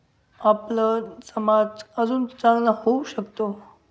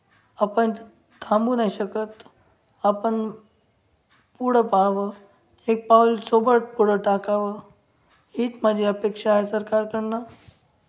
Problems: background sounds at intervals